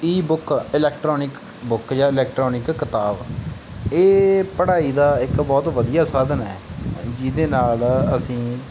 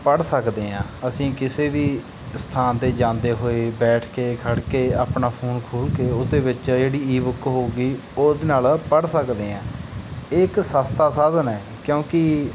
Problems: background sounds at intervals